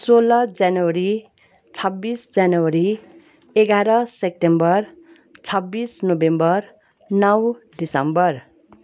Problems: none marked